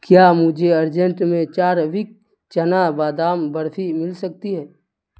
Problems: constant background noise